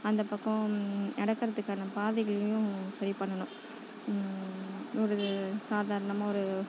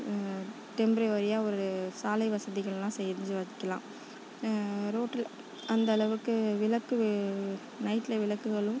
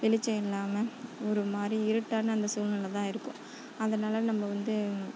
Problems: constant background noise, background conversations at intervals